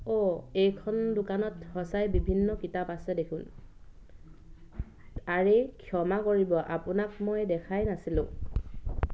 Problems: none marked